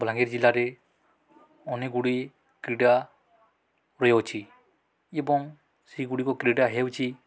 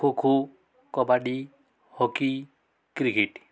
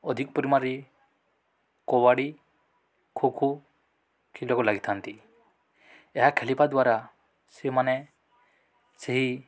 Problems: none marked